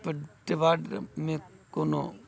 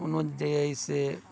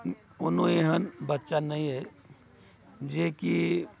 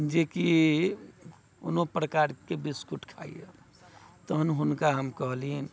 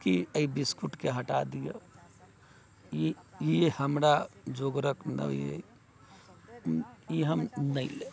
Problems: none marked